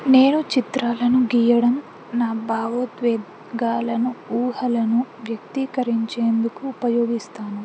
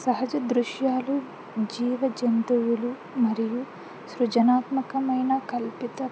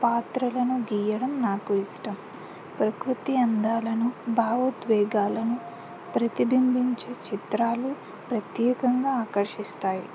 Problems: constant background noise